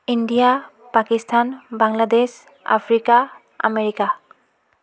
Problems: background sounds at intervals, continuous background conversations